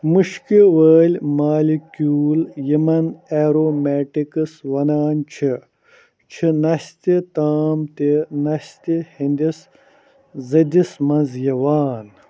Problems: none marked